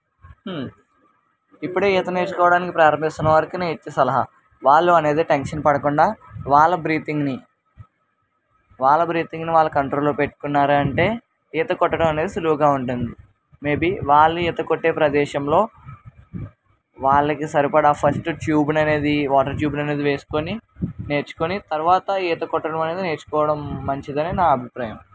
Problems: constant background noise